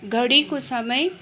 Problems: continuous background conversations